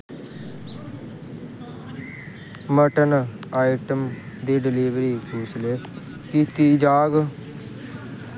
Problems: constant background noise